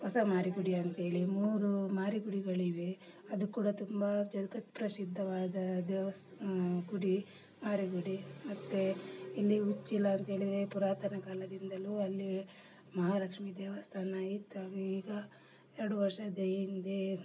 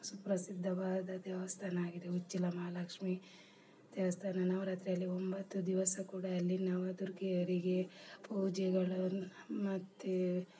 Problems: low volume